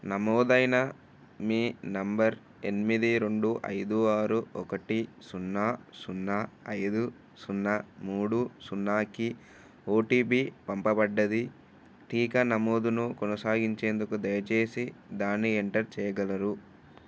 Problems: none marked